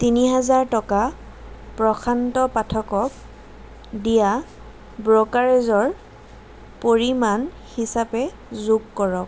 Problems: constant background noise